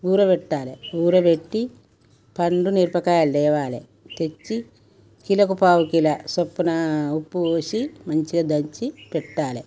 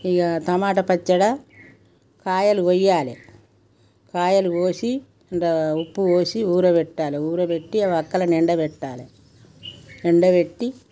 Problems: background sounds at intervals